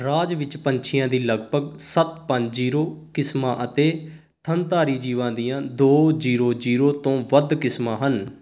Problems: constant background noise